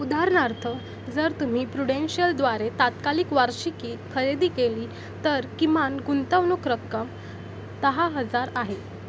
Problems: constant background noise